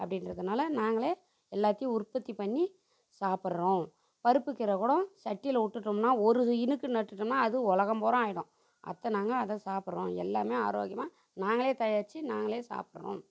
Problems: none marked